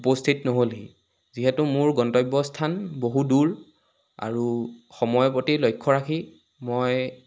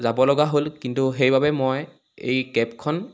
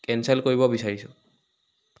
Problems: background sounds at intervals